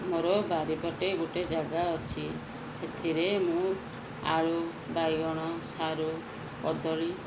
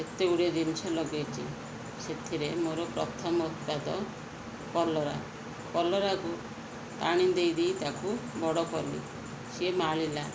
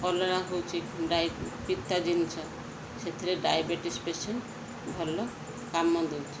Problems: constant background noise